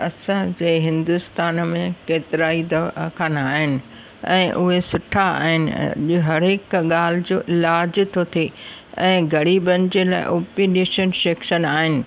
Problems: constant background noise